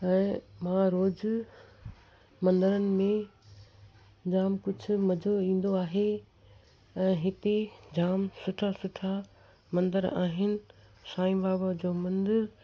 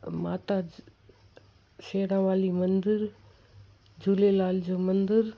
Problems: constant background noise